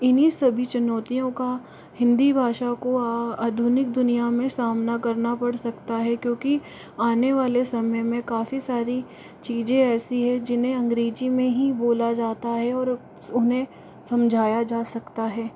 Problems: constant background noise